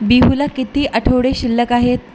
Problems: constant background noise, background conversations at intervals